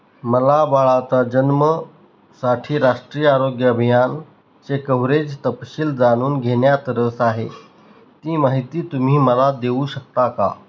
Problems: none marked